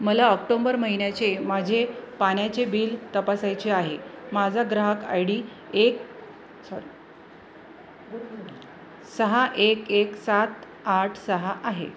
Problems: constant background noise, background conversations at intervals